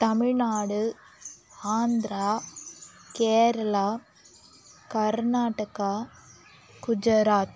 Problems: none marked